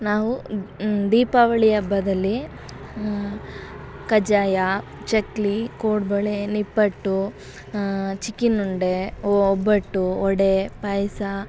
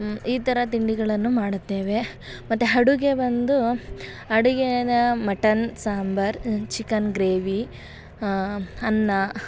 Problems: background sounds at intervals